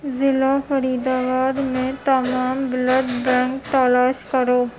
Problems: constant background noise